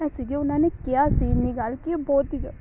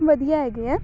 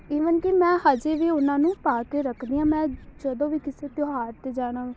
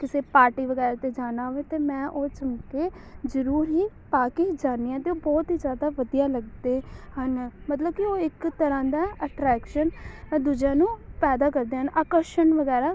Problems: background sounds at intervals, background conversations at intervals